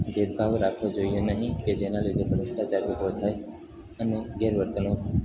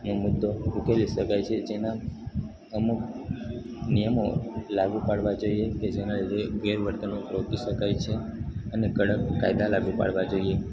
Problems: constant background noise